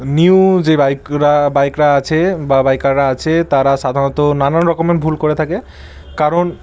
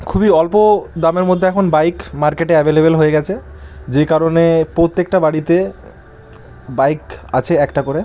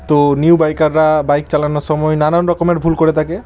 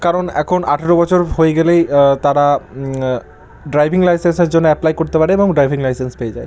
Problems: constant background noise